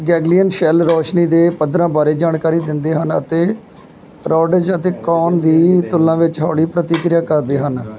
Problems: constant background noise, background conversations at intervals